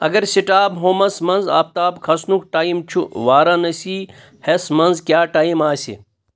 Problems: none marked